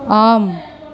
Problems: background conversations at intervals